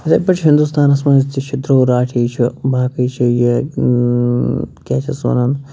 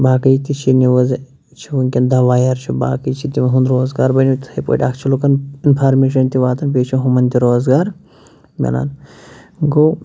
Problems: constant background noise